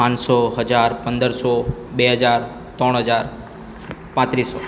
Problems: none marked